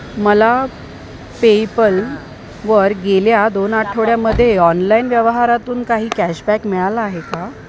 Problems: constant background noise